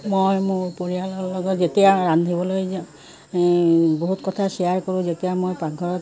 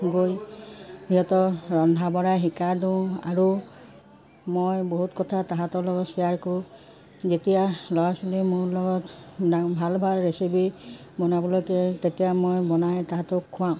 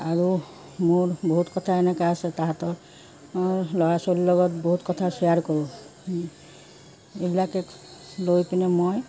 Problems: constant background noise